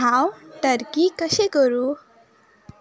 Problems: background sounds at intervals